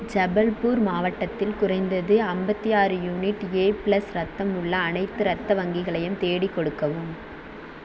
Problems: constant background noise